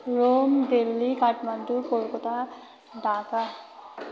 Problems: constant background noise, continuous background conversations